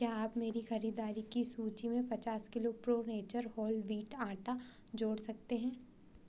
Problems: none marked